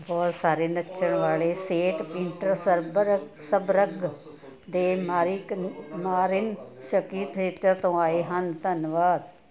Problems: continuous background conversations